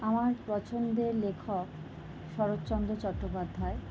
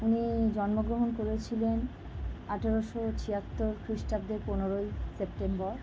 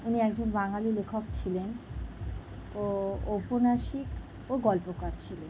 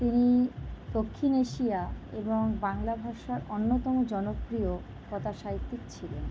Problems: background sounds at intervals